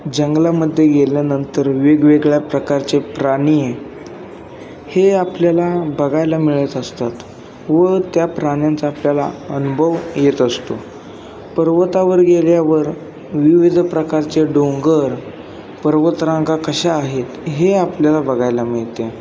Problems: constant background noise, background conversations at intervals